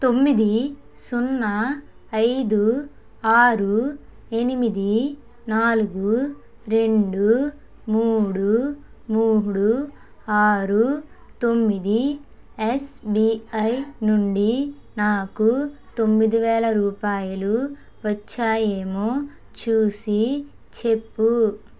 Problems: none marked